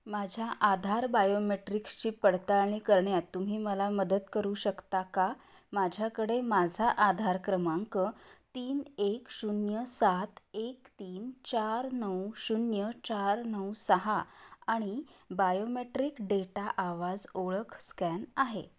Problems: none marked